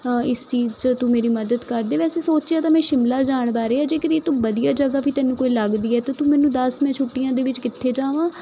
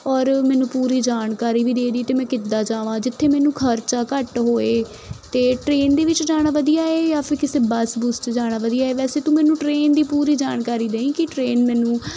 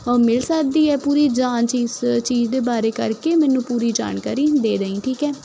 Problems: none marked